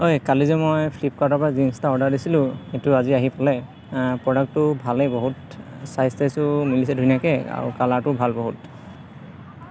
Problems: constant background noise, background conversations at intervals